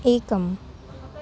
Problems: constant background noise